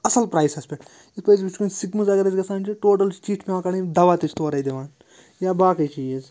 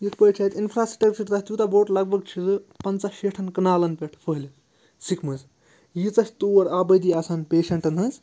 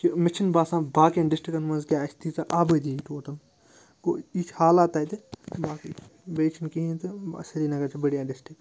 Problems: constant background noise